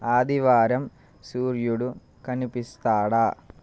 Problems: constant background noise